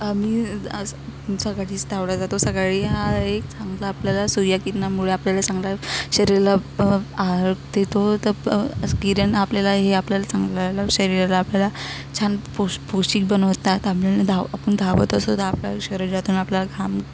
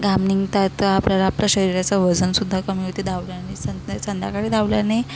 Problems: none marked